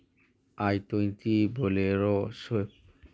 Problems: none marked